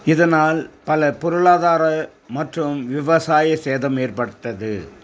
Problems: constant background noise